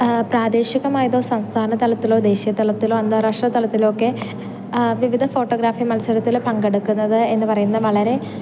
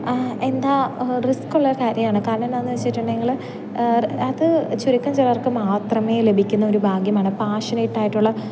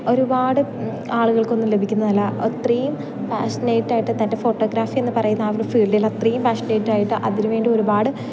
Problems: background sounds at intervals